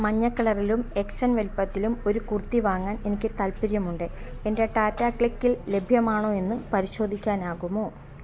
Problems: constant background noise